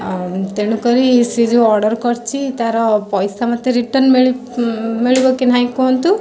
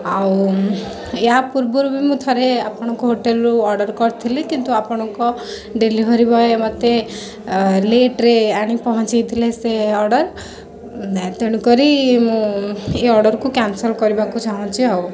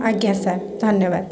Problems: constant background noise